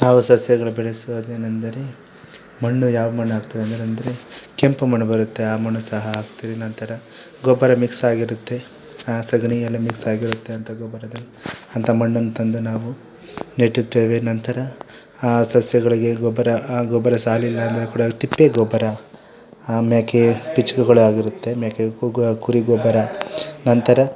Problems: background conversations at intervals